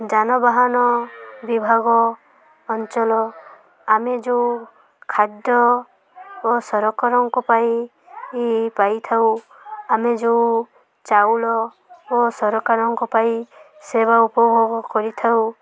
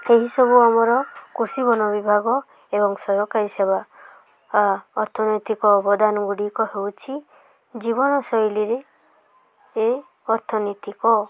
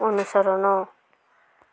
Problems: constant background noise, continuous background conversations